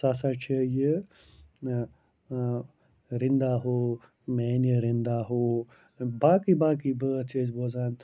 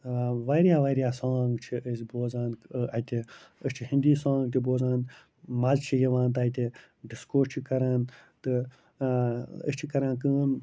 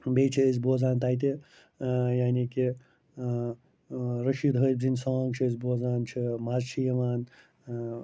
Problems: low volume